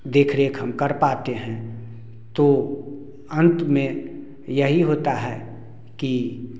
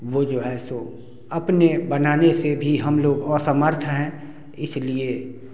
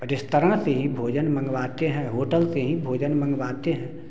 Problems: constant background noise